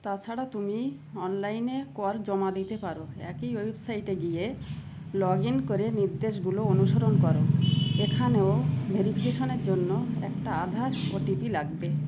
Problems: constant background noise